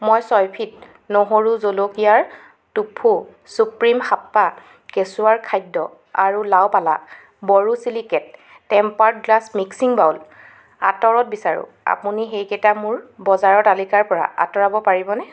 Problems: none marked